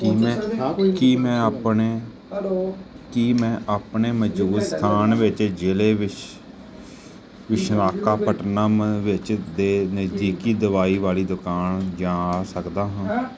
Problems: background sounds at intervals, continuous background conversations